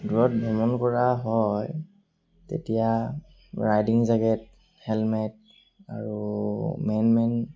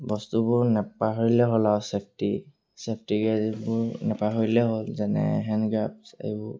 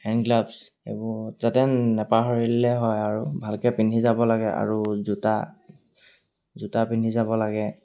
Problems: none marked